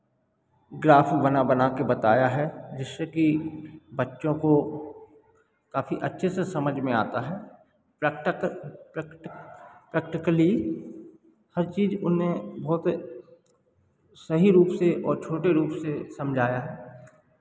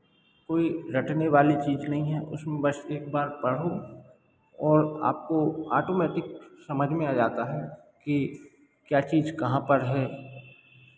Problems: background sounds at intervals